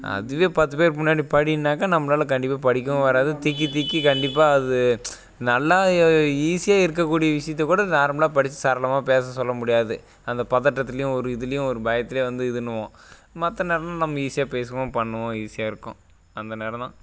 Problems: none marked